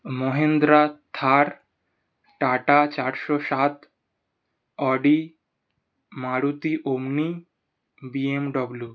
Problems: none marked